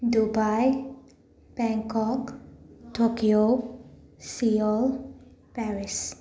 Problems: constant background noise, background conversations at intervals